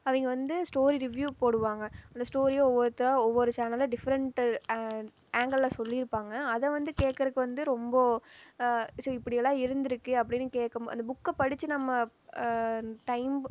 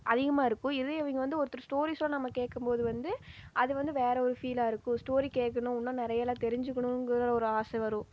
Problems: none marked